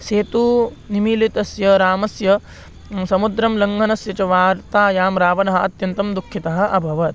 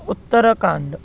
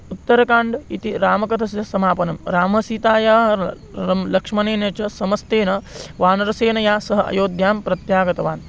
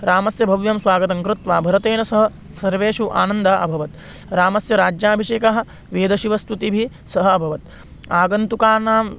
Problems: constant background noise